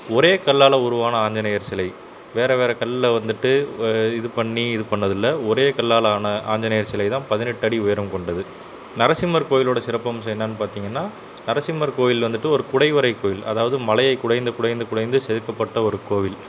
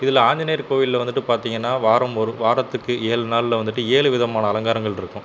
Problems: constant background noise